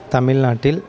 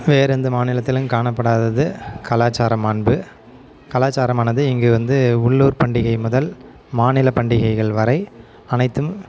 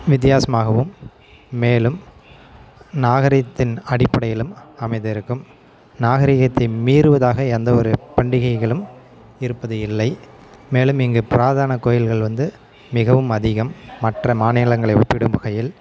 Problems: continuous background conversations